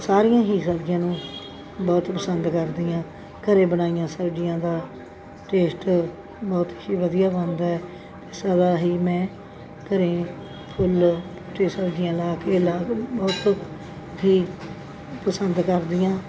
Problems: none marked